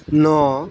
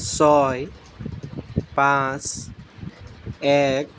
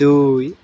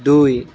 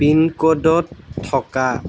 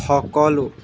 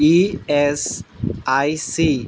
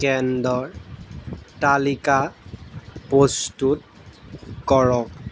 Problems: background sounds at intervals